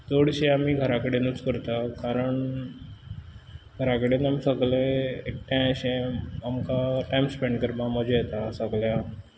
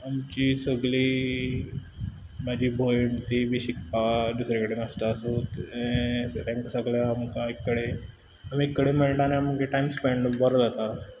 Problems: background sounds at intervals